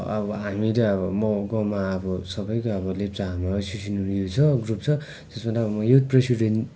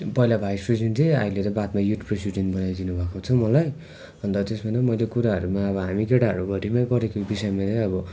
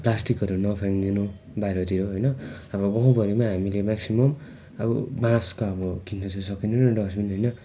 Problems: constant background noise